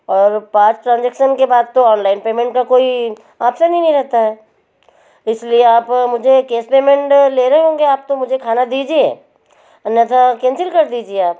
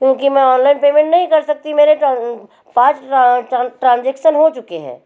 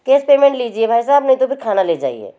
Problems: none marked